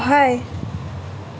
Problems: constant background noise